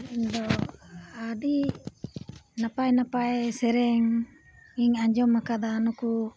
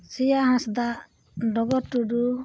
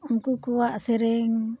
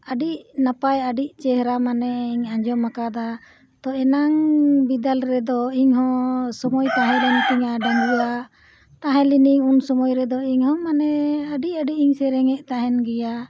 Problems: background sounds at intervals